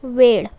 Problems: none marked